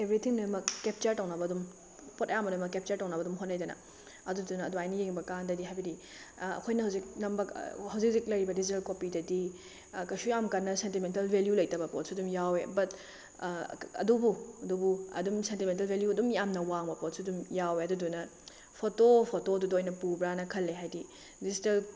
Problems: background sounds at intervals